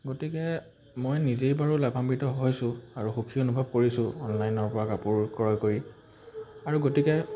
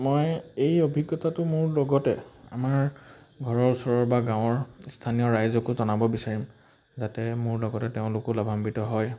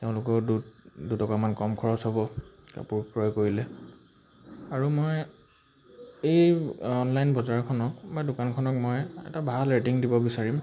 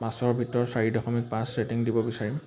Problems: constant background noise